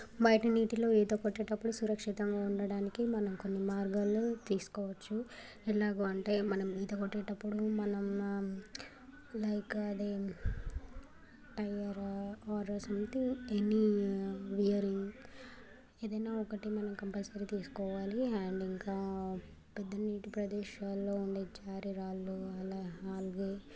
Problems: constant background noise, continuous background conversations